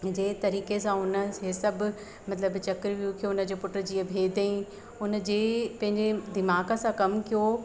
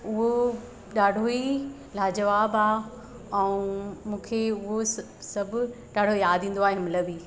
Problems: constant background noise, echo